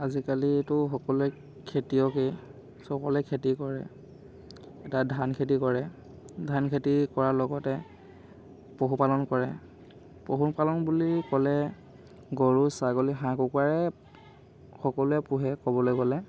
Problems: constant background noise